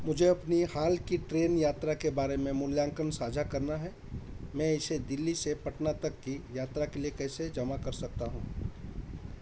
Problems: none marked